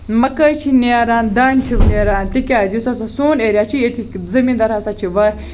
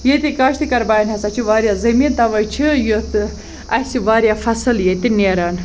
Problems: background sounds at intervals